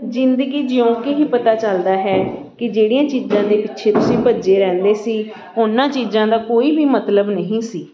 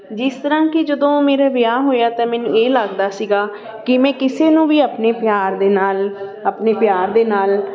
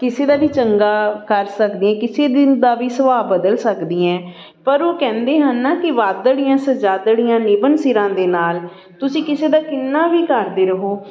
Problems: background sounds at intervals, continuous background conversations